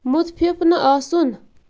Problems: constant background noise